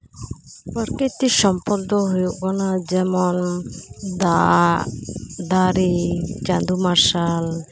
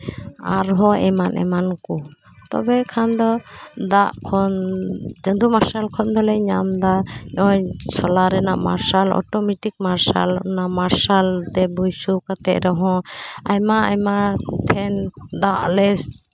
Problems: background conversations at intervals